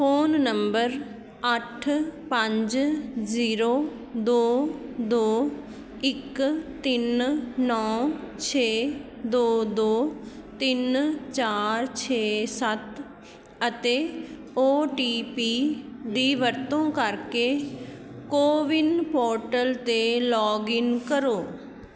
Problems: constant background noise, background conversations at intervals